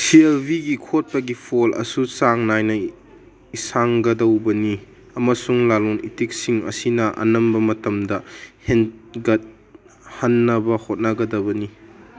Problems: background sounds at intervals